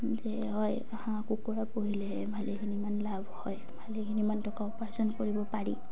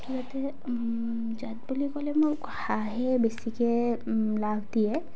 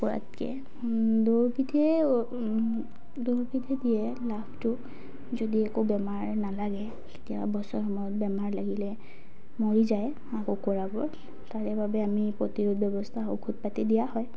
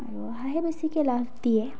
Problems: background sounds at intervals